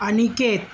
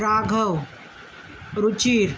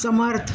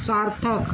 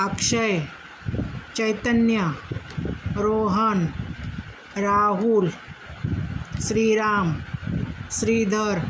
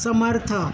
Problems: none marked